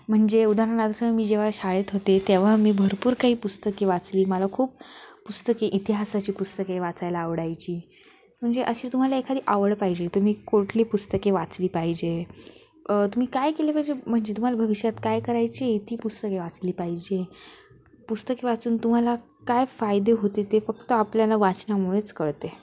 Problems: background sounds at intervals